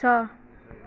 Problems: none marked